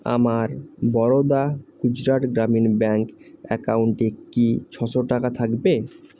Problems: constant background noise